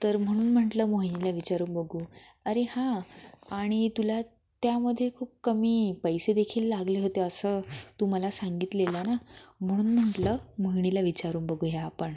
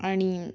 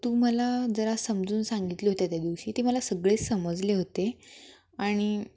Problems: none marked